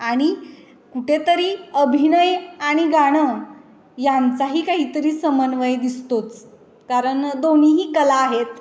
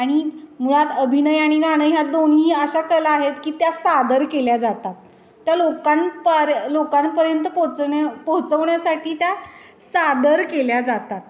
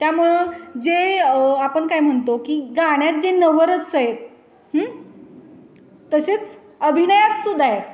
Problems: constant background noise, background conversations at intervals, echo